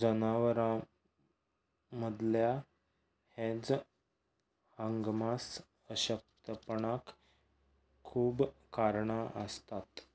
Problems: background sounds at intervals